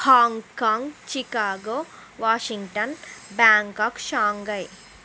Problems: constant background noise